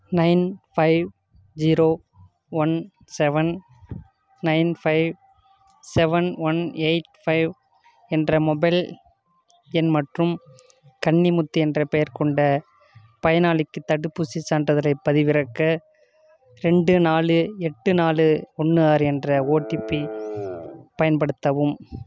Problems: constant background noise